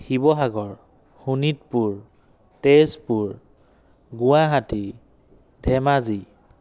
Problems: none marked